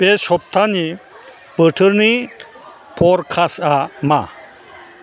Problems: constant background noise